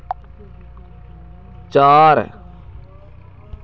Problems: constant background noise, continuous background conversations